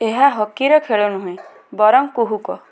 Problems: background sounds at intervals